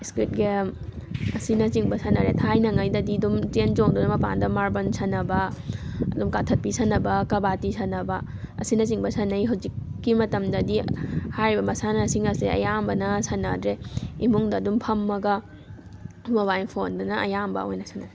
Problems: constant background noise